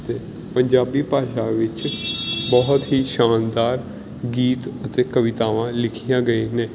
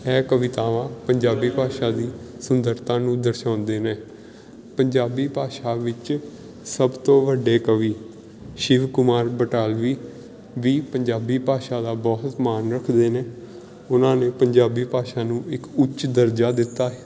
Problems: background sounds at intervals